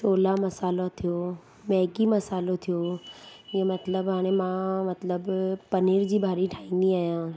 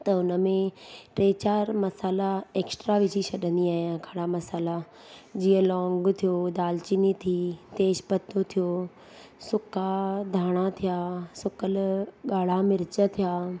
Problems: constant background noise